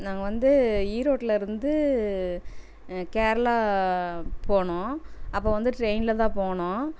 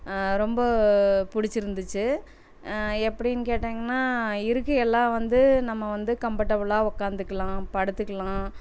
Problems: none marked